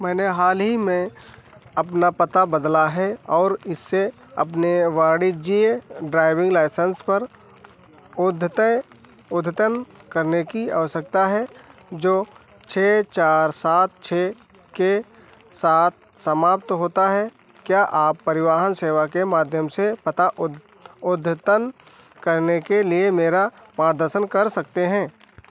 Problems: constant background noise